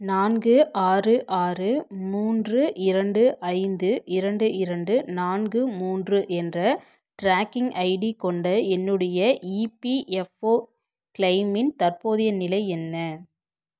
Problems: none marked